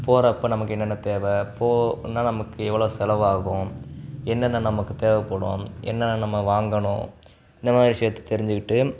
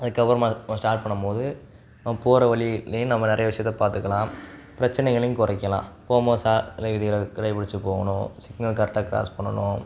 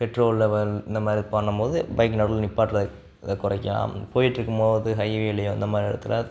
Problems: background sounds at intervals